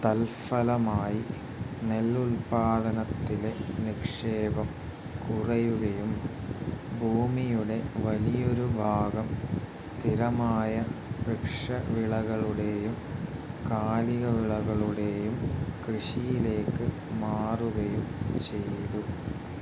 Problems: constant background noise